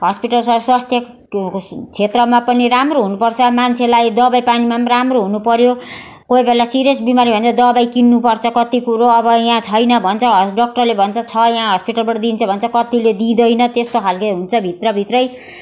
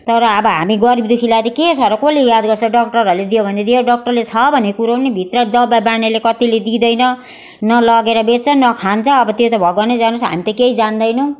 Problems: constant background noise